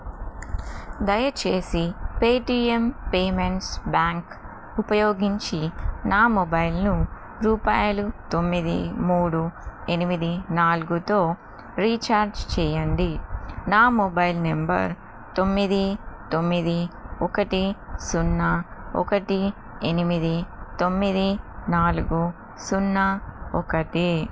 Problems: constant background noise